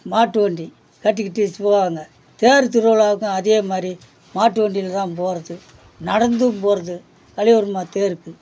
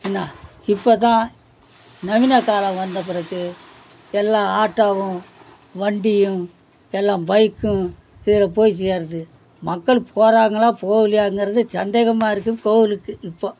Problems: none marked